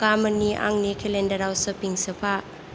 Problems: constant background noise